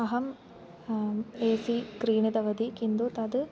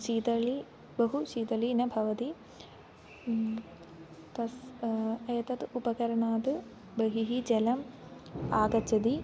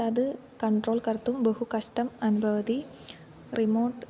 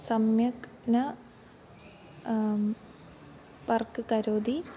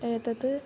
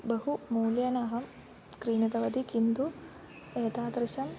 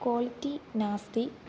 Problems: constant background noise